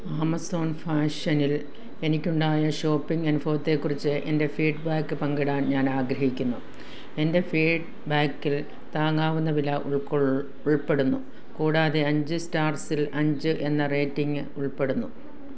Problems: background sounds at intervals